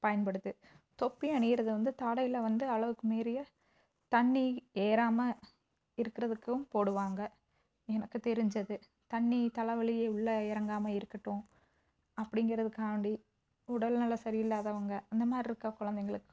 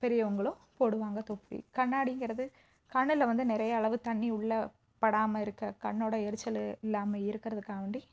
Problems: background sounds at intervals